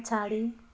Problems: background sounds at intervals